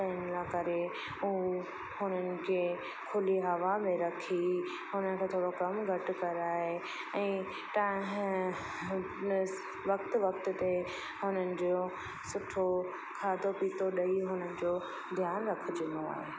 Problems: constant background noise, echo